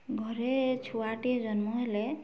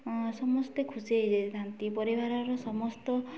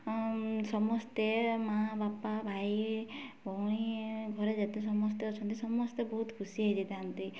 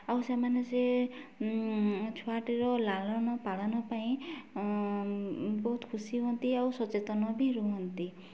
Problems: none marked